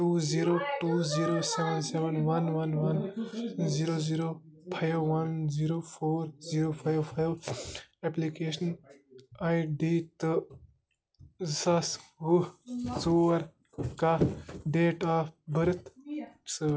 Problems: constant background noise, continuous background conversations